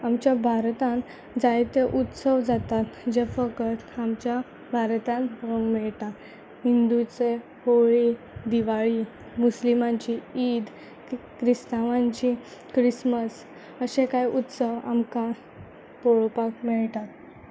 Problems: none marked